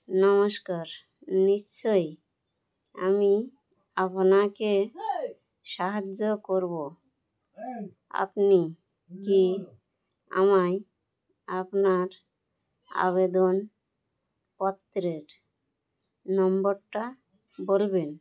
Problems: constant background noise